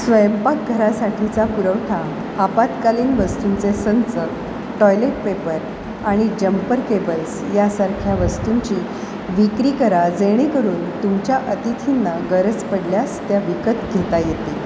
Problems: constant background noise